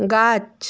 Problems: none marked